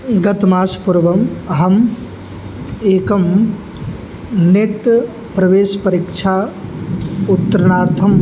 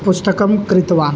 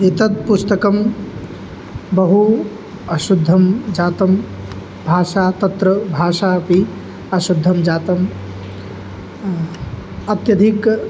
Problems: background sounds at intervals